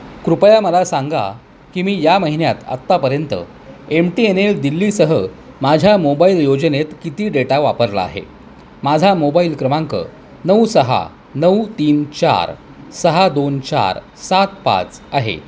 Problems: constant background noise, continuous background conversations